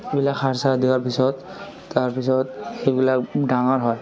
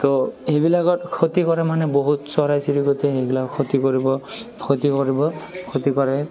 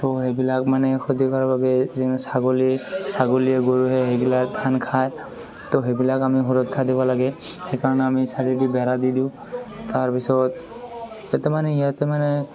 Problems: constant background noise, continuous background conversations